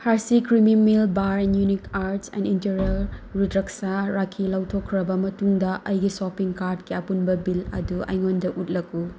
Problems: constant background noise